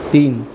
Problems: constant background noise, background conversations at intervals